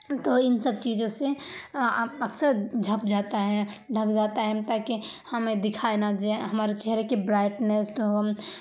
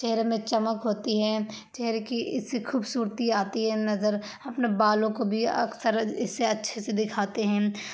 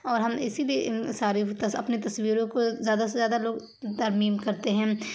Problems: constant background noise